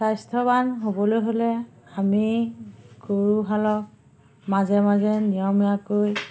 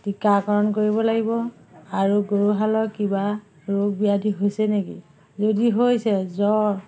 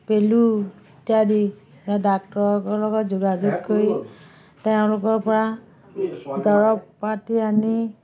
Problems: background sounds at intervals, background conversations at intervals